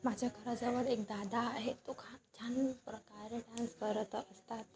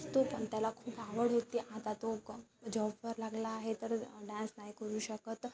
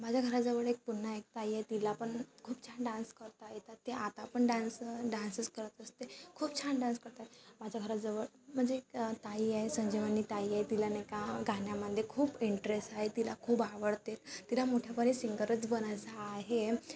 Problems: constant background noise, background conversations at intervals